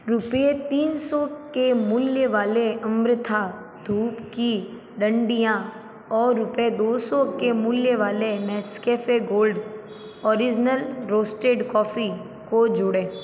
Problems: background sounds at intervals